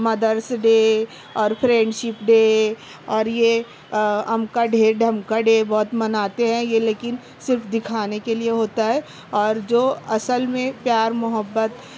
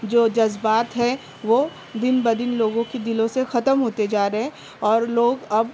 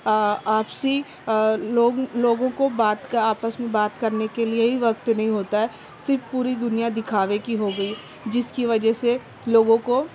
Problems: constant background noise